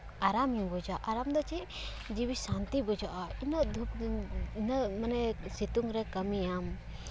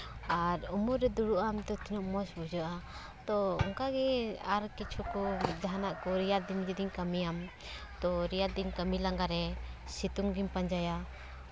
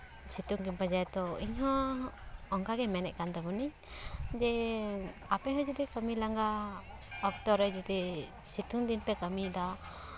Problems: constant background noise